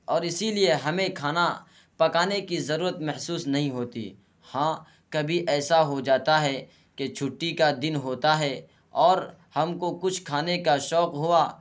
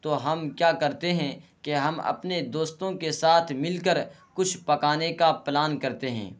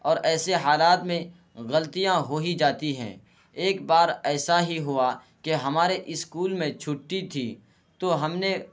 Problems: constant background noise